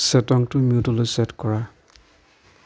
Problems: background conversations at intervals